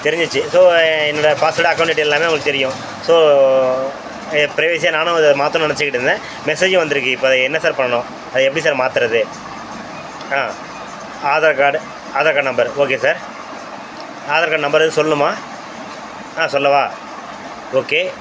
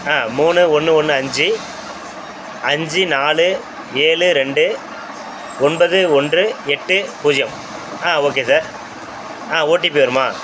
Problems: constant background noise